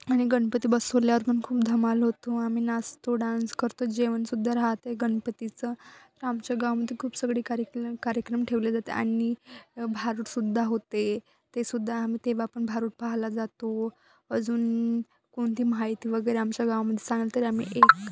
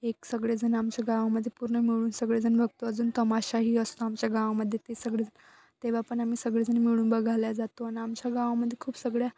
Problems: constant background noise